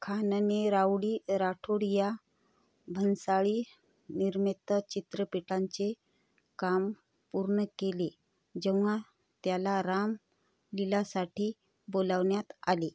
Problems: constant background noise